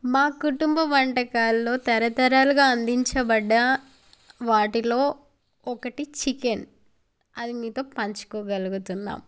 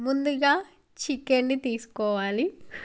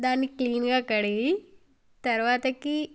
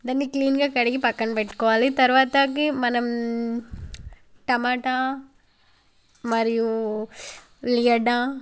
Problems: background conversations at intervals